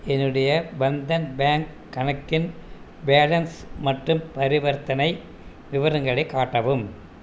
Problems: constant background noise